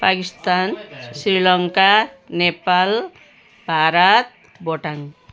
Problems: constant background noise